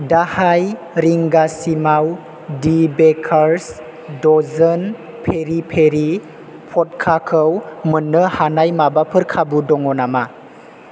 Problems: constant background noise